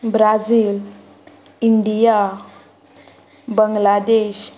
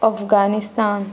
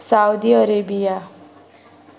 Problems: constant background noise